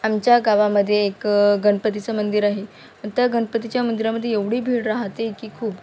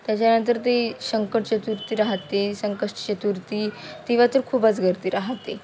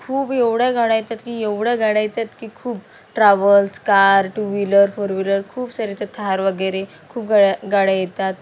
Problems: none marked